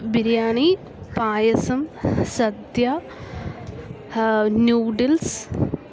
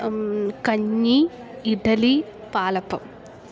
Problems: none marked